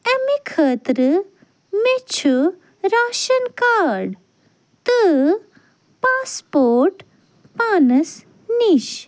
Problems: none marked